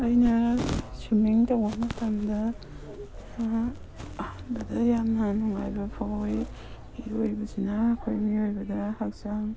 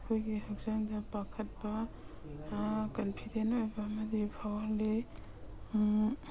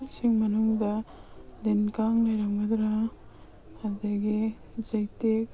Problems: background sounds at intervals, background conversations at intervals